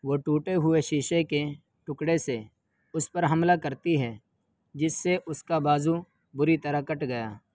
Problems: constant background noise